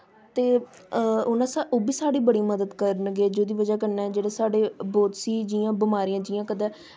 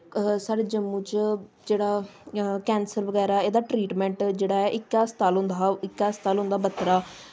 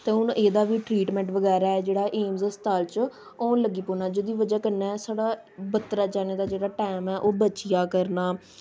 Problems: constant background noise